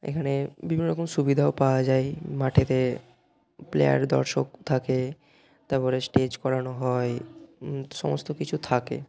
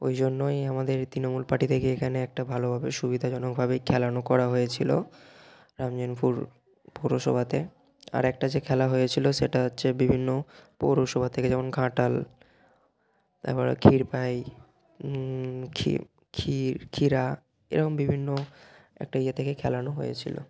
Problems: none marked